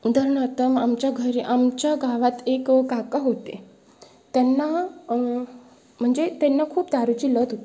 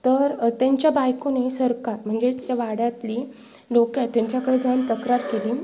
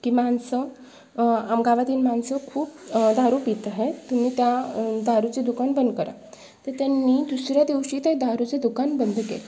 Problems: background sounds at intervals